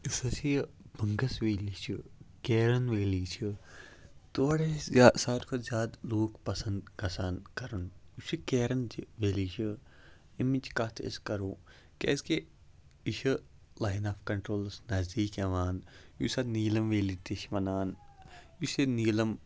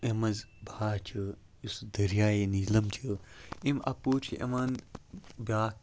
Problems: low volume